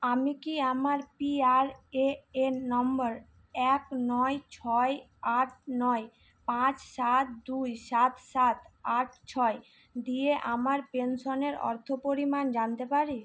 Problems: none marked